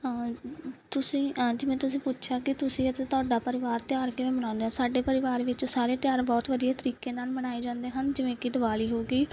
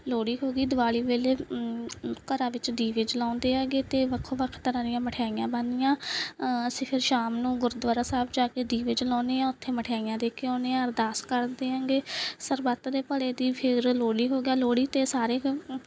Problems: background sounds at intervals